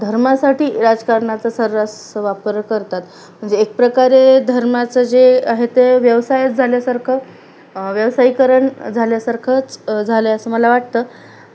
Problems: none marked